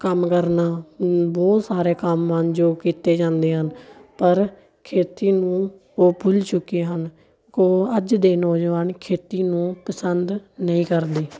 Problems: continuous background conversations